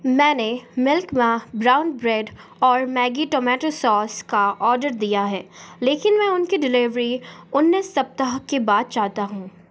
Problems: constant background noise